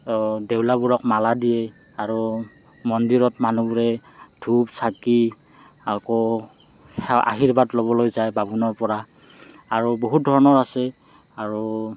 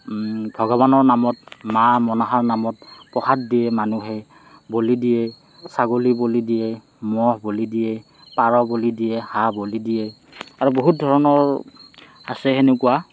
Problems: background sounds at intervals, background conversations at intervals